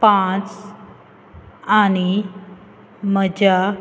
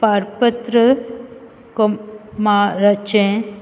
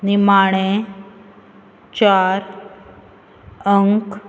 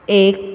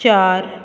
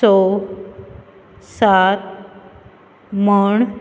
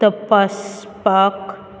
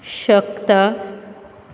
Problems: constant background noise